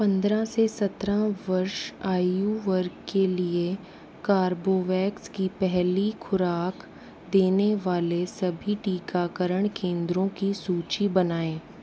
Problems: constant background noise